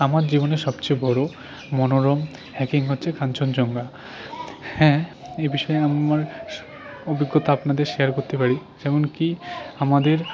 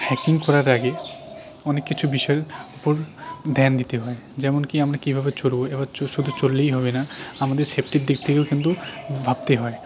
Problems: constant background noise, continuous background conversations